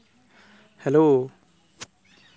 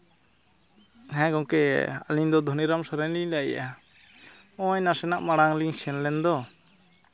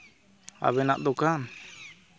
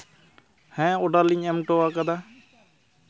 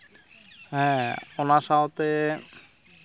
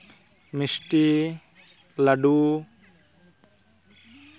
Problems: constant background noise